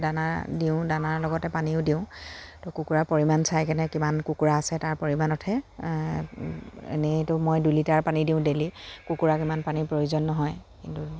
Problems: none marked